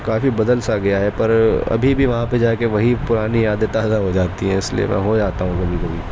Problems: constant background noise